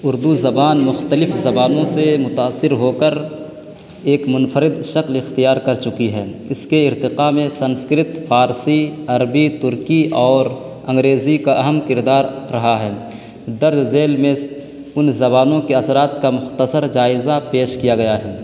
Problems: constant background noise